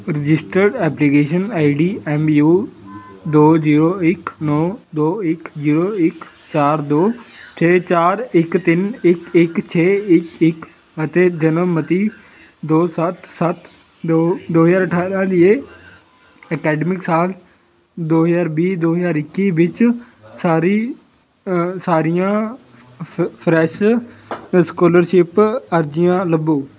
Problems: none marked